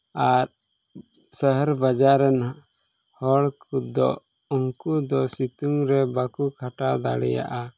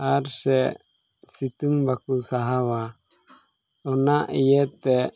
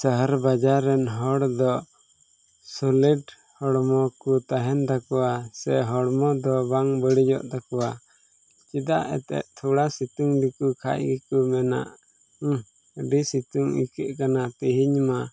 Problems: background sounds at intervals